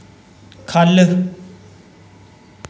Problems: background sounds at intervals, echo